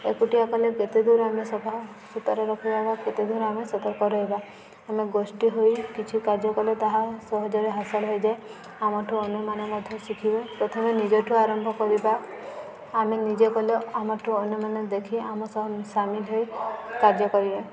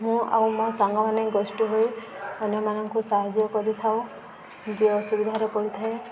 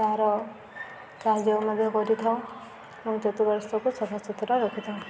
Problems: constant background noise